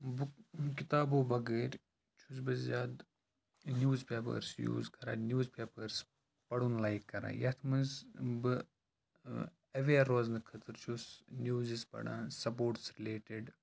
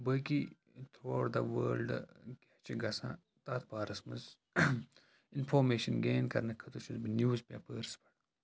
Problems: constant background noise, low volume